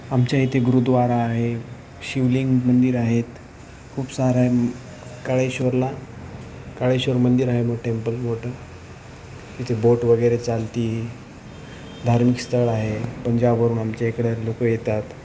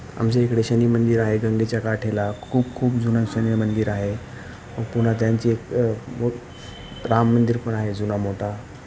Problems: none marked